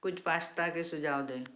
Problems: background sounds at intervals